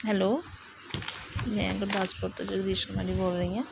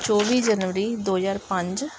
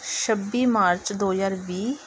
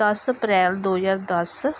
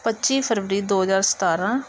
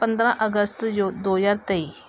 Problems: background conversations at intervals